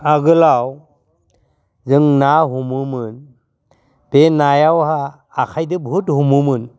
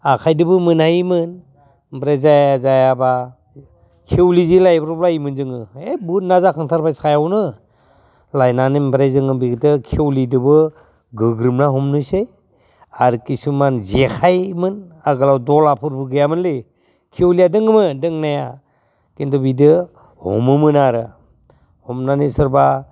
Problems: constant background noise